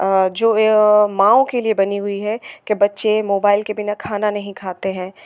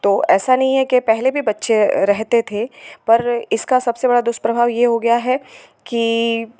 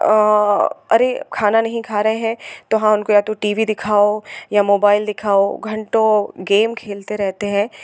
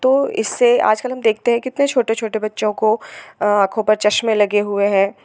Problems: constant background noise